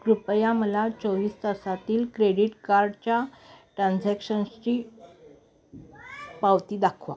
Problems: none marked